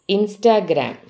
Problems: none marked